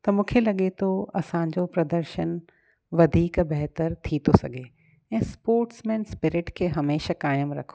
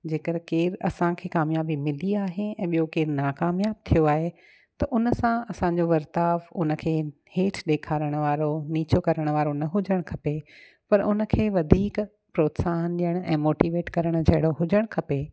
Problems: none marked